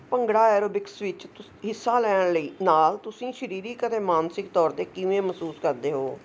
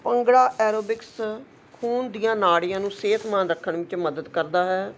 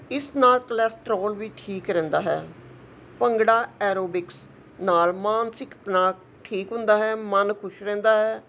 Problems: none marked